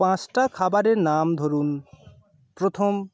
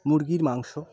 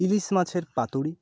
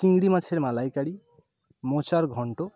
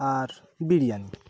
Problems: constant background noise